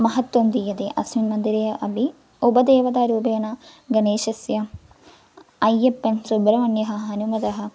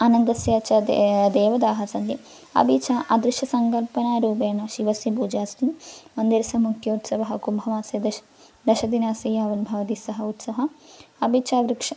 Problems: none marked